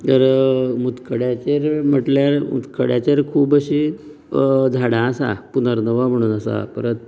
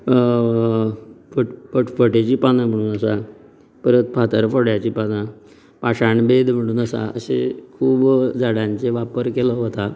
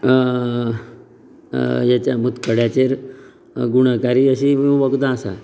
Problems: none marked